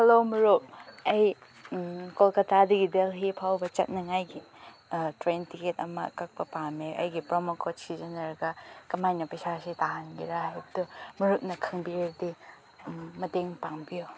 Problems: background sounds at intervals